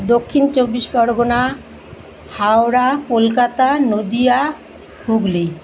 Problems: constant background noise